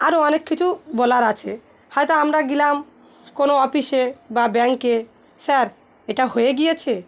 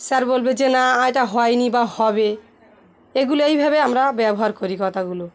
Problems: none marked